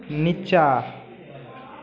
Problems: none marked